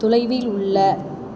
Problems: constant background noise